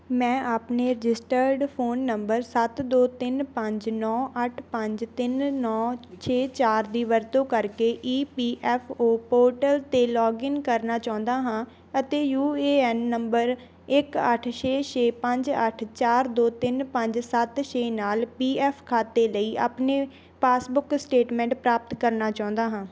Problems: background sounds at intervals